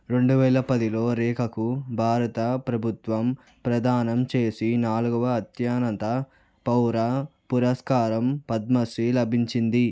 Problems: none marked